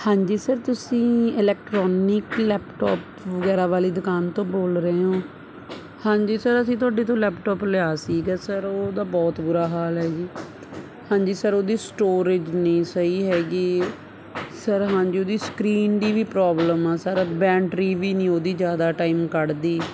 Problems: constant background noise